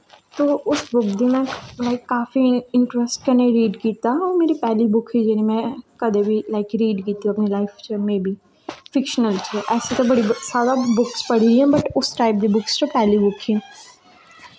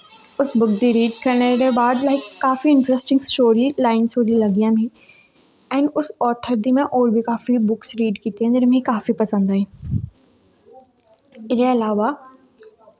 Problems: low volume